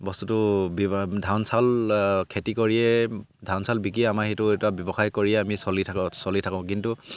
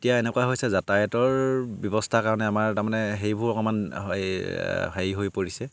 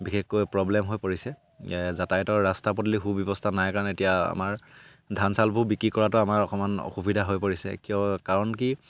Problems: background sounds at intervals